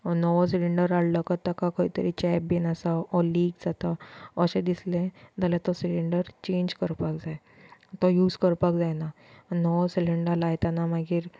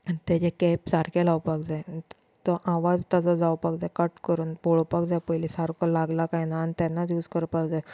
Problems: constant background noise